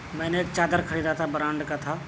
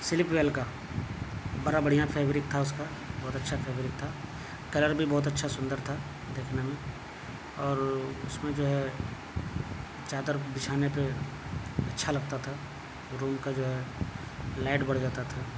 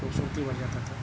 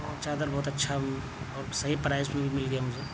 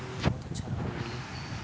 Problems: constant background noise